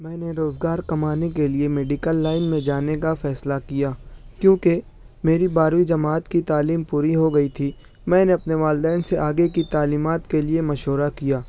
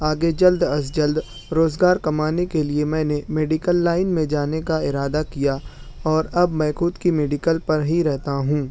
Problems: none marked